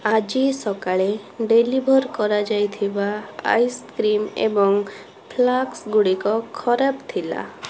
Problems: constant background noise, background conversations at intervals